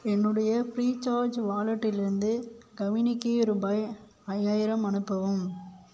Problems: none marked